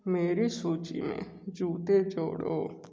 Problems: low volume